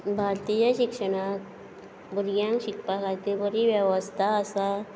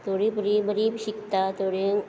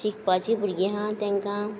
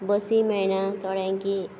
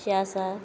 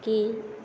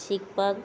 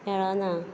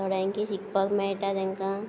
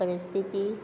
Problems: constant background noise